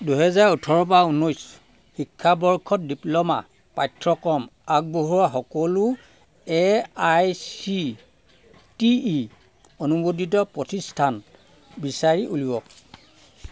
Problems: none marked